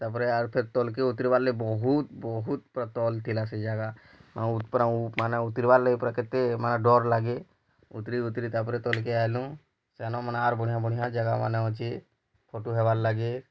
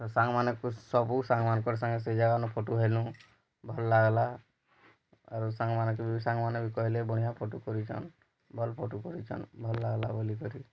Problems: low volume